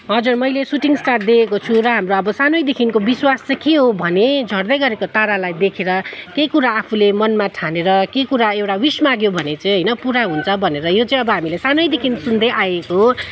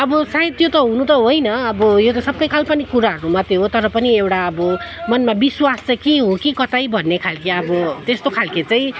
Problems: background sounds at intervals, background conversations at intervals